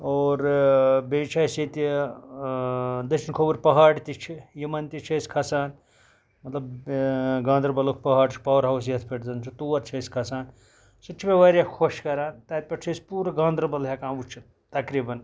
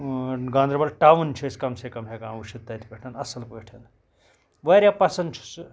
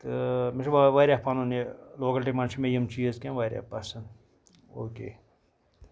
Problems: background sounds at intervals